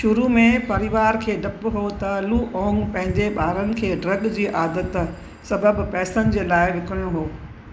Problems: constant background noise, echo